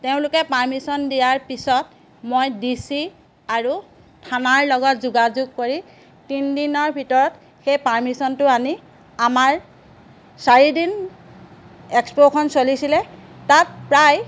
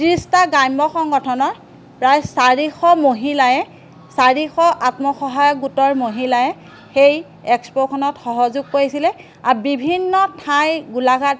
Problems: background sounds at intervals